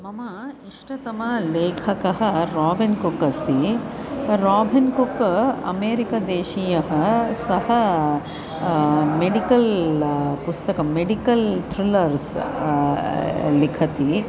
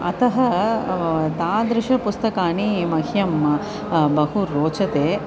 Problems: constant background noise